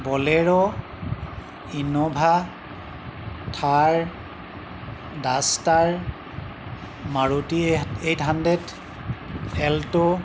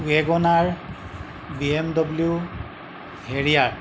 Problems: none marked